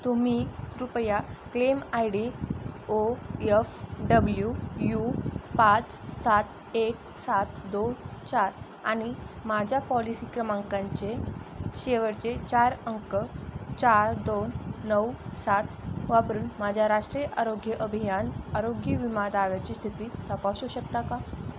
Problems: constant background noise